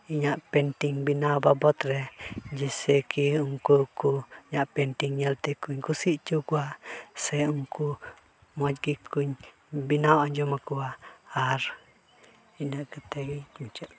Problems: background sounds at intervals